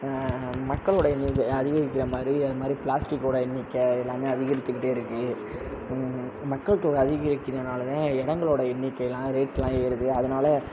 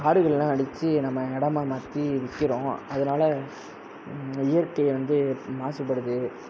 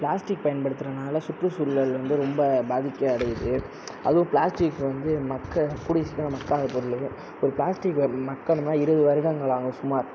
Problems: background sounds at intervals